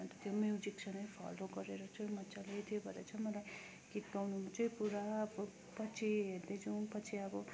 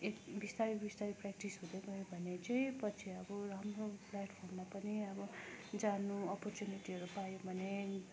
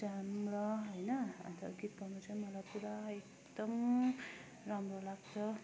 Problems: constant background noise